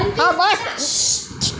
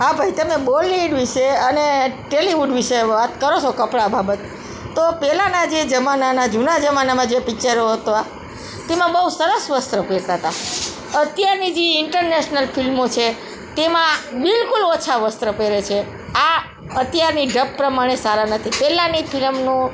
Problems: background sounds at intervals, background conversations at intervals